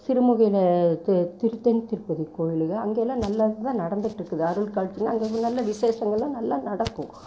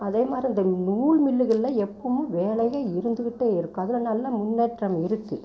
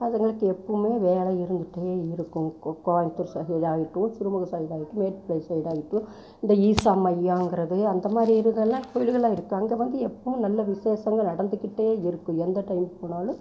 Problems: background sounds at intervals